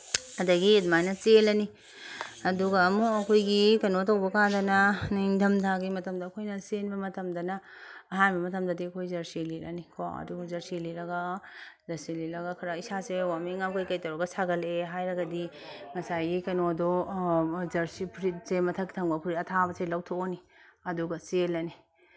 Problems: background sounds at intervals